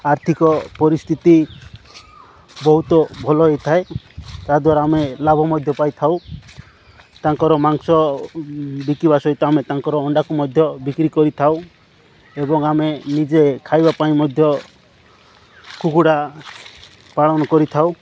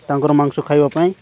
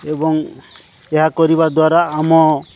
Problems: background sounds at intervals